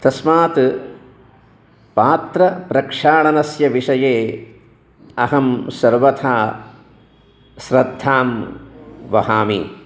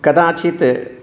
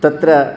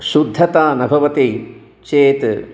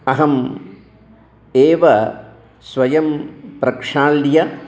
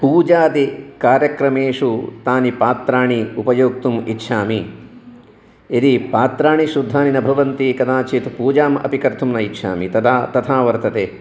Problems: continuous background conversations